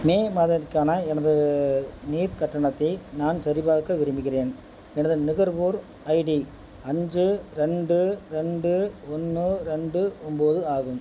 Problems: background sounds at intervals